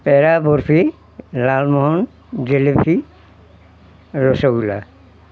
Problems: constant background noise